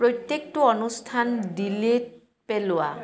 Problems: background conversations at intervals